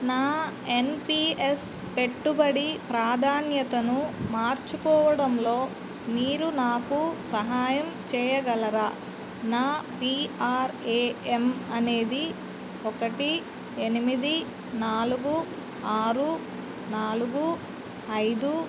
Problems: constant background noise